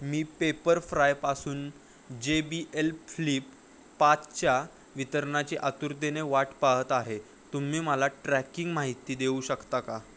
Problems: none marked